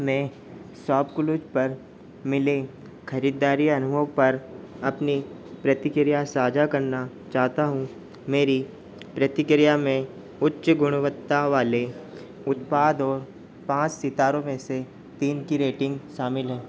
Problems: constant background noise